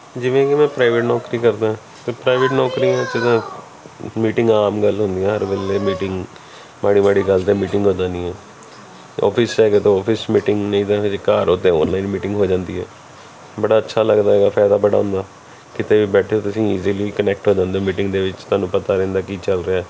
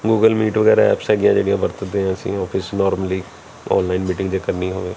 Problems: continuous background conversations